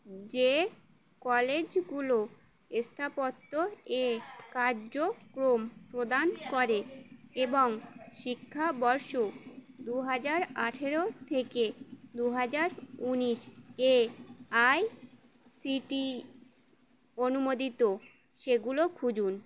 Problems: none marked